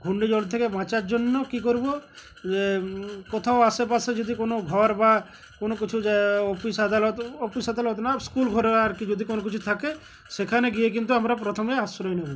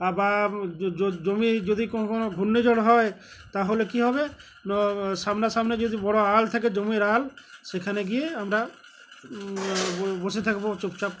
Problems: constant background noise, continuous background conversations